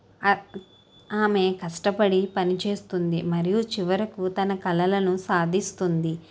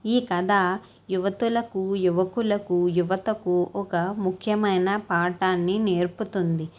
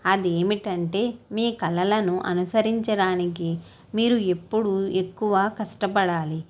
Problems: none marked